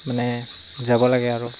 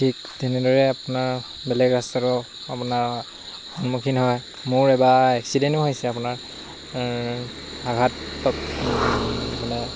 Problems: constant background noise